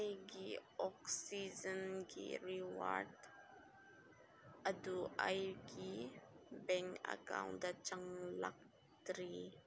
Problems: low volume